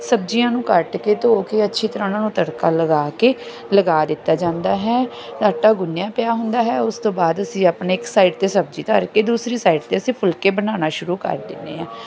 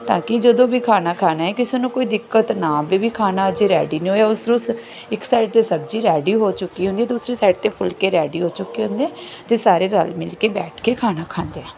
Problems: background sounds at intervals